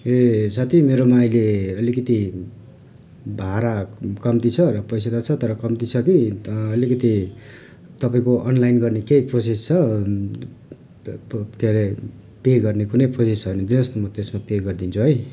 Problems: constant background noise